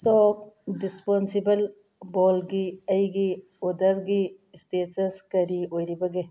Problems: none marked